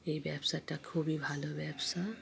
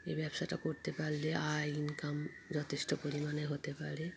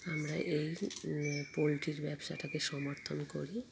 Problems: background sounds at intervals, background conversations at intervals